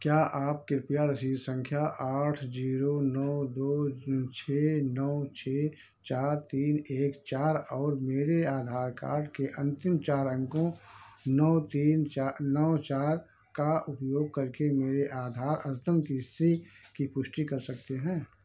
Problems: background sounds at intervals